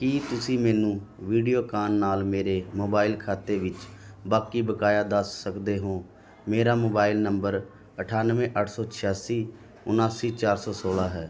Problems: continuous background conversations